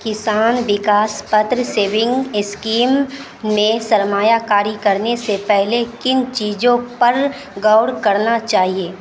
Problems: constant background noise